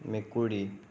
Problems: constant background noise